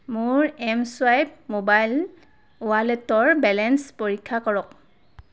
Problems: background sounds at intervals